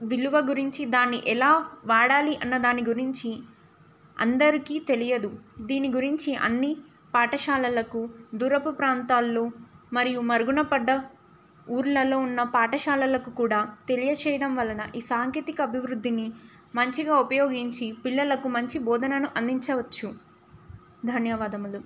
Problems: none marked